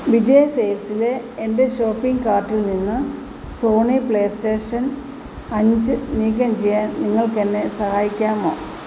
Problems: constant background noise